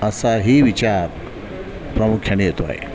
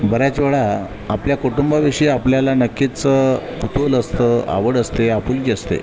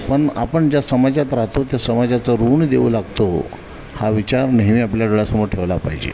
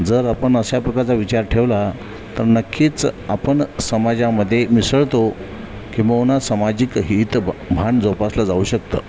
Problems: none marked